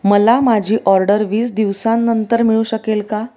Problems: none marked